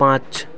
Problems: none marked